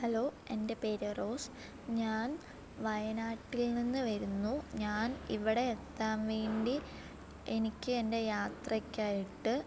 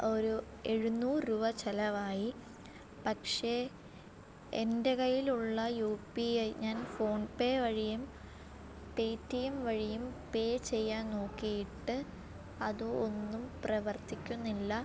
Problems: low volume